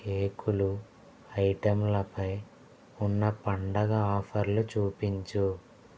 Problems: constant background noise, low volume